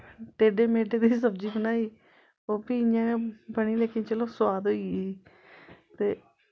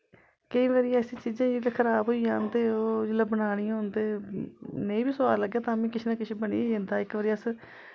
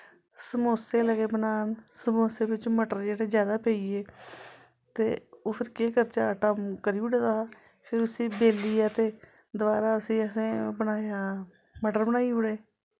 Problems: constant background noise